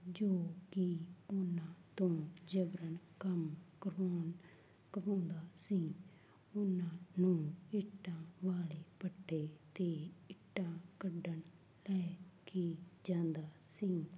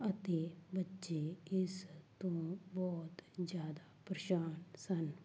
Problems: none marked